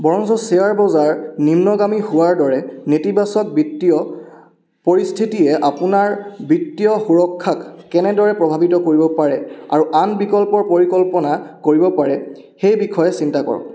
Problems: echo